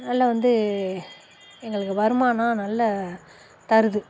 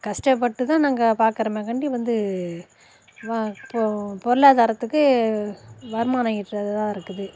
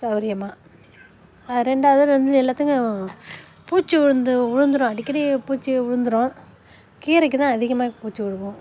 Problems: constant background noise